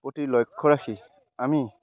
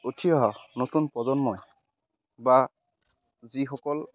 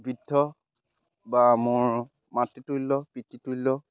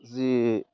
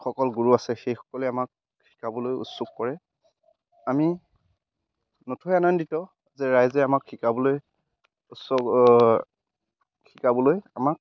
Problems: none marked